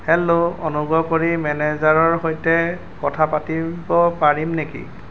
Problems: constant background noise